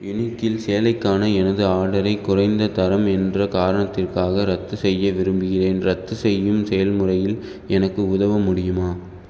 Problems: none marked